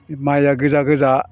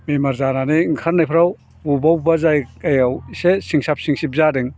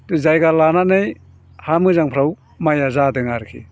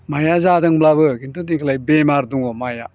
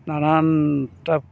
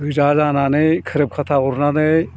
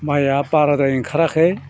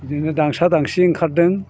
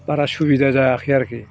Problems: low volume